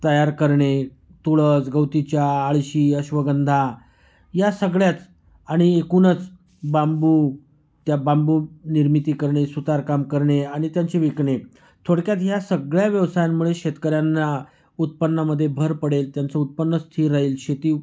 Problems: background sounds at intervals